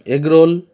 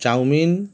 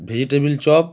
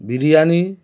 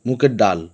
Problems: constant background noise